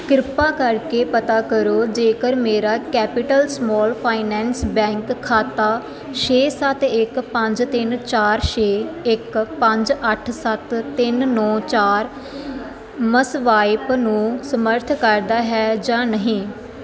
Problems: background sounds at intervals